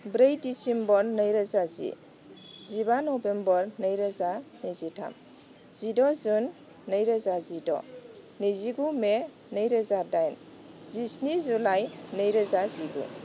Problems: constant background noise